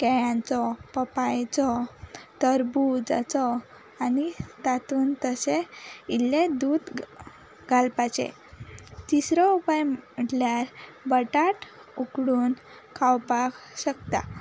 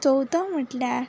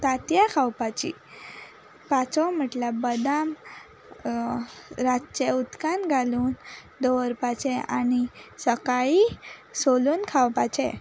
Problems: background sounds at intervals